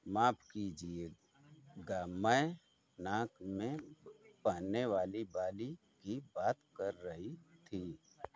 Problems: none marked